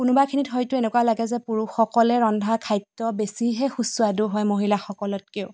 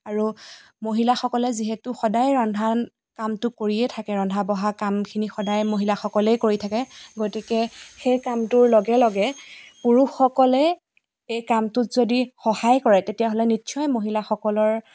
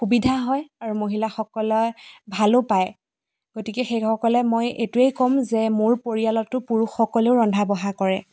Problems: constant background noise